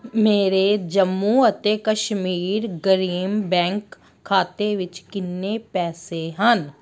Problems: background sounds at intervals